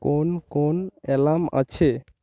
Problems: none marked